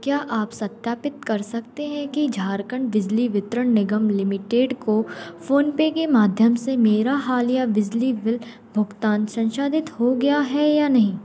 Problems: constant background noise, background conversations at intervals